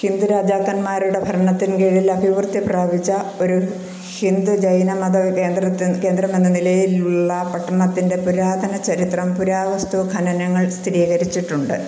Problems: constant background noise